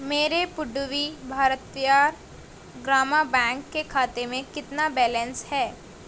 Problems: constant background noise